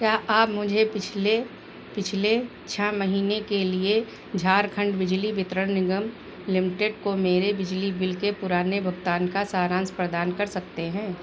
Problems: none marked